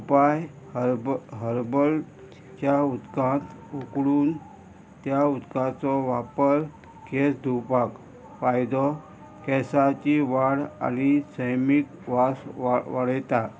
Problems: constant background noise